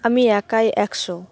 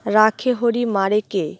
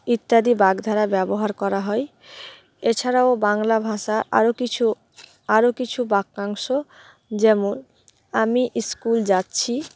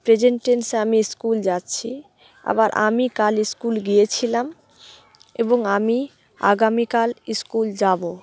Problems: background sounds at intervals